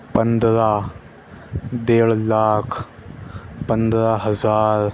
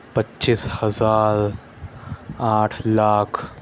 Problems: constant background noise